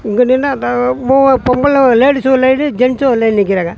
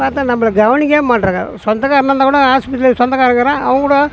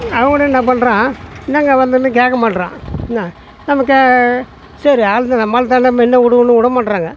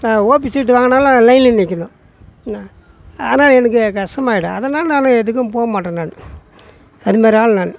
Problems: background sounds at intervals